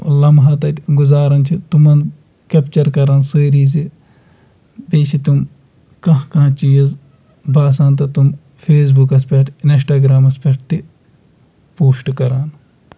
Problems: background sounds at intervals